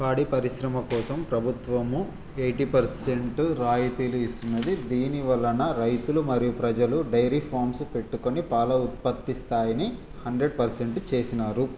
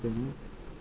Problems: constant background noise